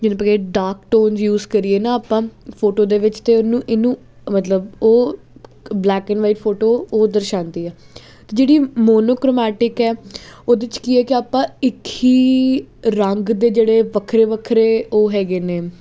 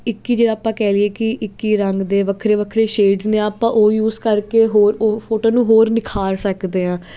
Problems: none marked